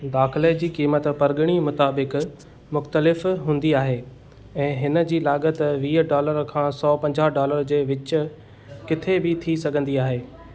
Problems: constant background noise